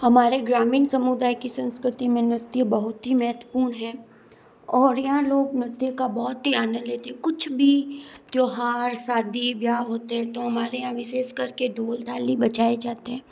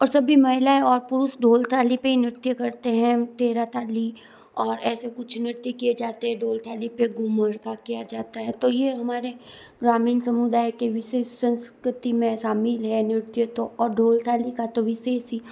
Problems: none marked